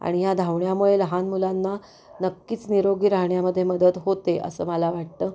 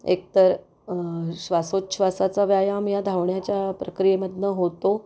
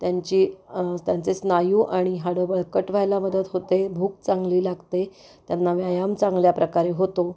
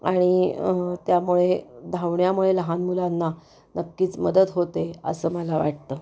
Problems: none marked